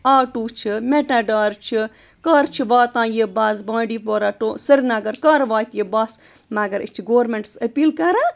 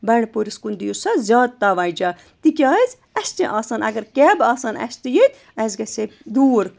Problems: constant background noise